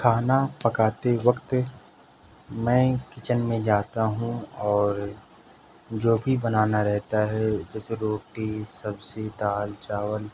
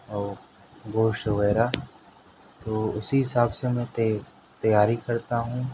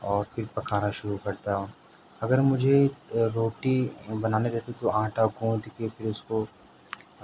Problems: none marked